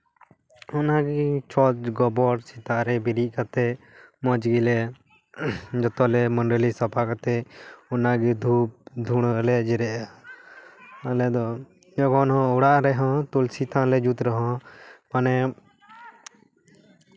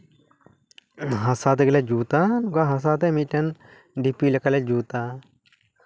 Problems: none marked